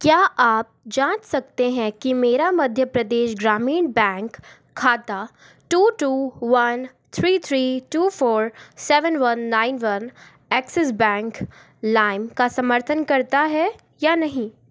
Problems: constant background noise